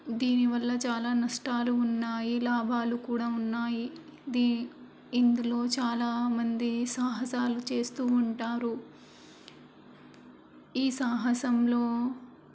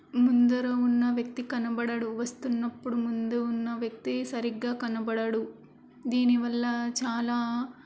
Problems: constant background noise